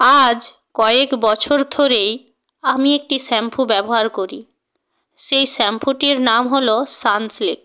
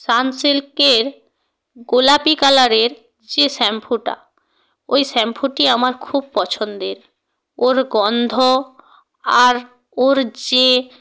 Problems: none marked